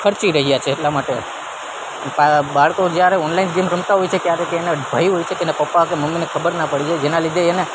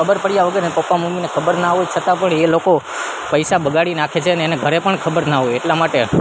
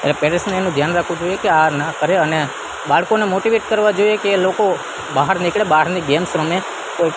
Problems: constant background noise